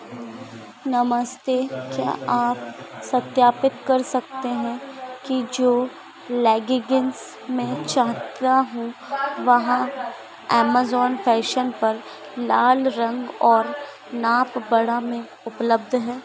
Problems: none marked